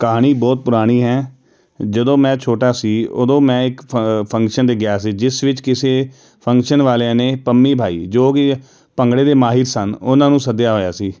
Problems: none marked